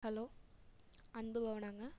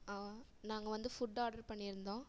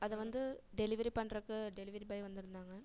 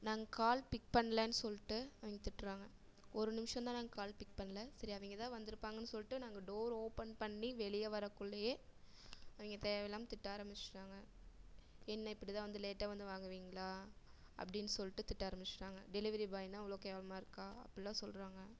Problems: low volume